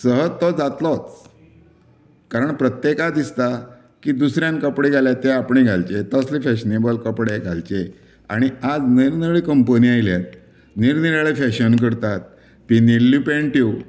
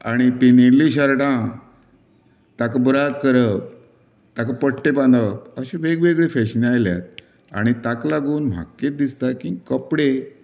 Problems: none marked